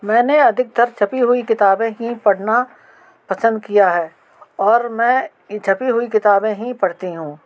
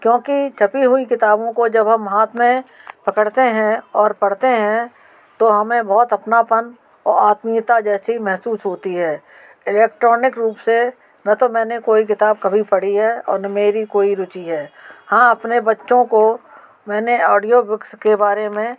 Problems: background sounds at intervals